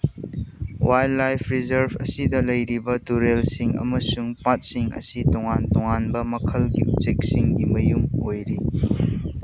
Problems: constant background noise